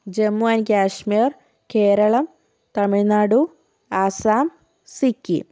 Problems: none marked